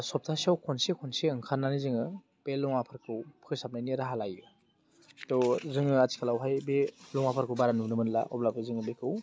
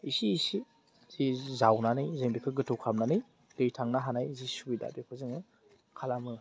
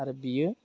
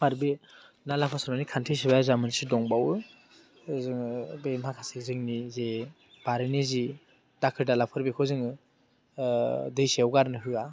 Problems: low volume